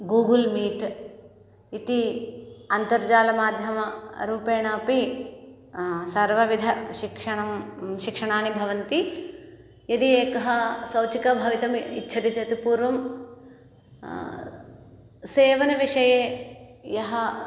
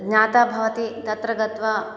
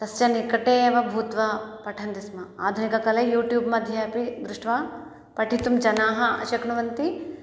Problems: none marked